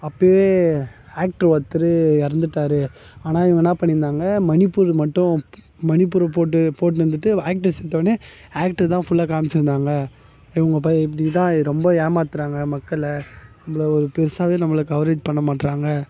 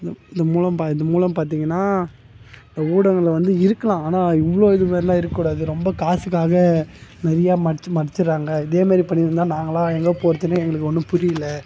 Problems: background sounds at intervals